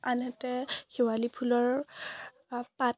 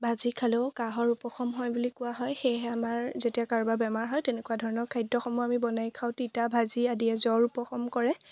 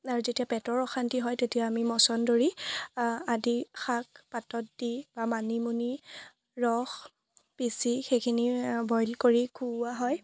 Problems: none marked